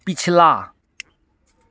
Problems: constant background noise